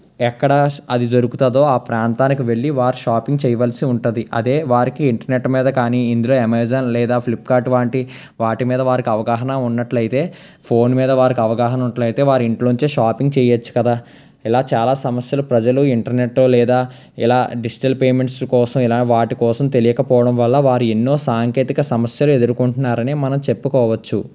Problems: constant background noise